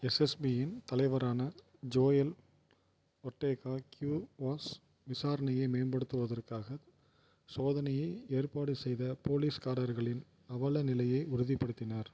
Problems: none marked